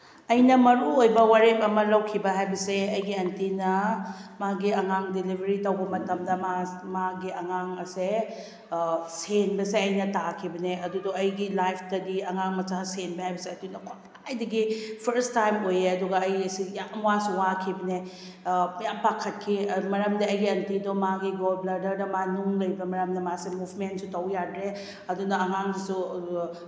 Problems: none marked